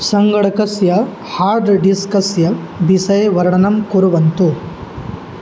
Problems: none marked